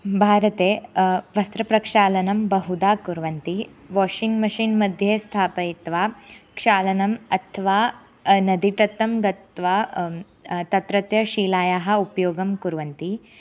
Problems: none marked